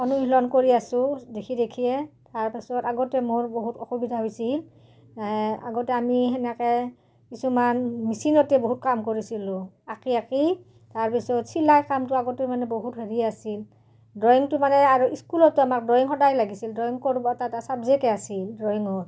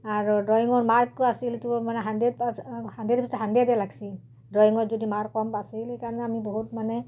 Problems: background conversations at intervals